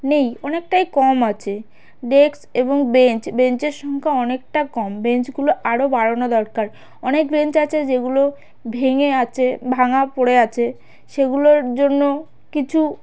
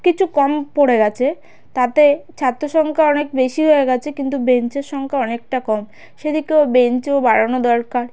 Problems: constant background noise